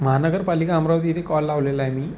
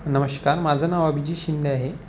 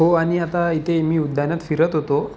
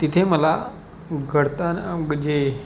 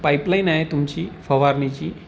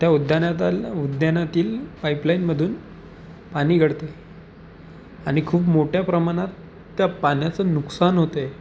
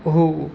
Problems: none marked